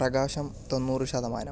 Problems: low volume